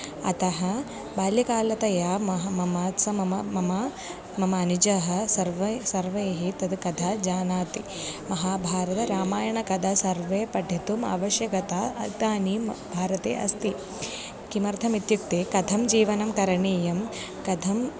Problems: background sounds at intervals